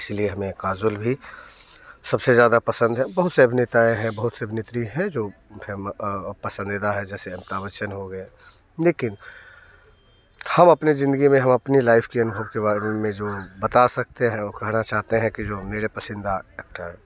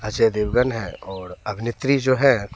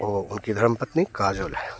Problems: none marked